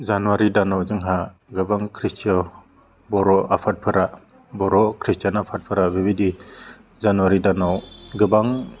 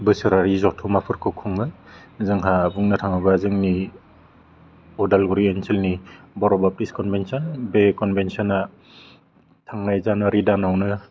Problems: constant background noise